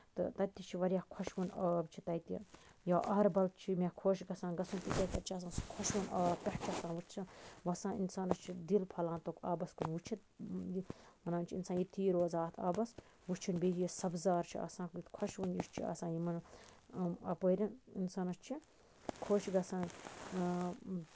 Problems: none marked